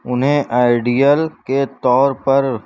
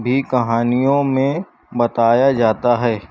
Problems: constant background noise